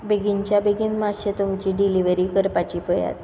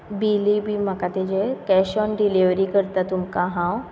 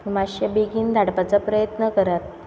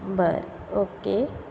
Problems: background sounds at intervals